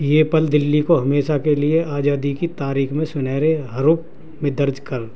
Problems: constant background noise, low volume